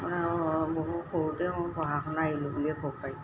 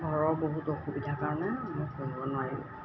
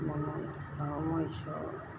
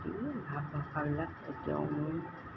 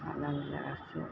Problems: constant background noise